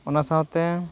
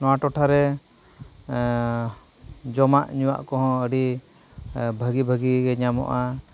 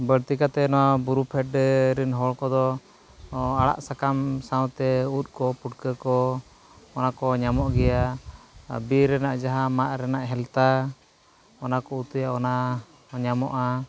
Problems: none marked